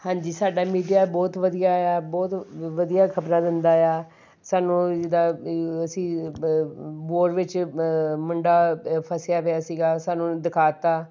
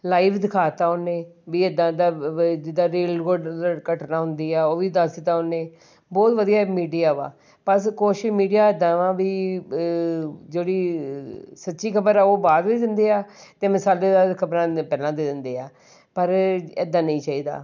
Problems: none marked